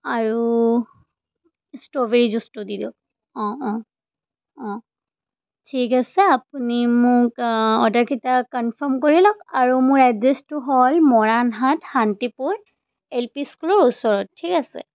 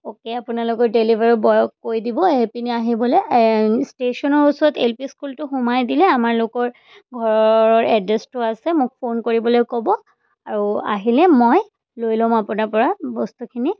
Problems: background sounds at intervals